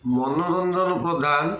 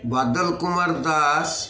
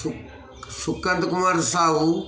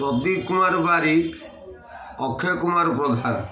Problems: constant background noise, continuous background conversations